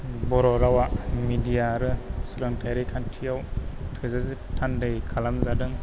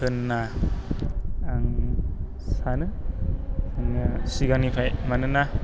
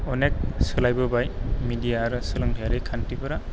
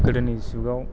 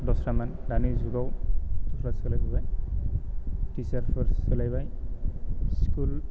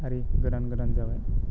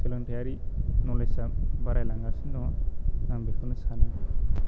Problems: low volume